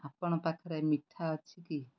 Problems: none marked